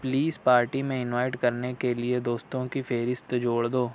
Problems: constant background noise